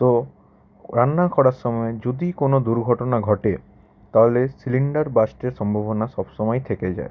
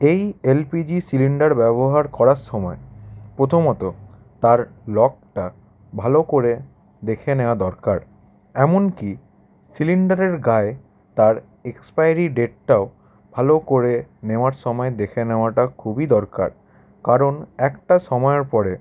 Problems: background sounds at intervals